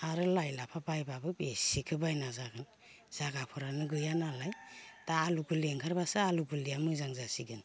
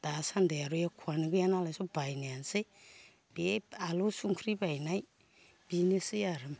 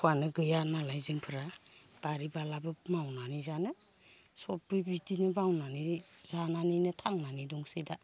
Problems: none marked